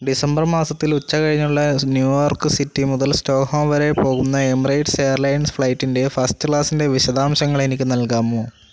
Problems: constant background noise